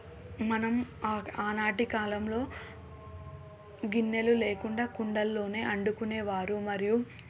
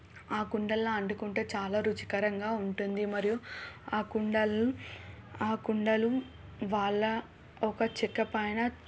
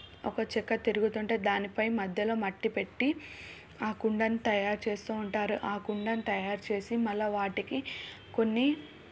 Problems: none marked